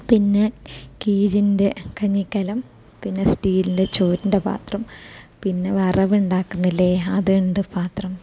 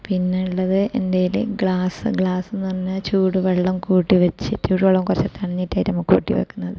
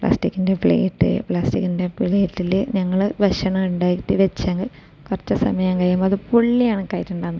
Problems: none marked